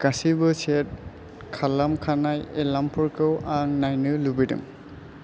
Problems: constant background noise